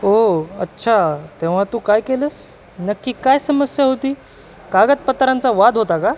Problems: constant background noise